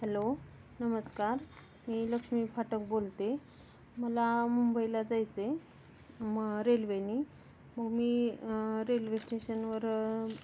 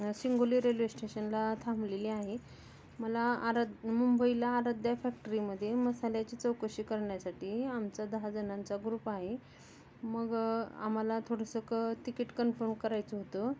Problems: constant background noise, background conversations at intervals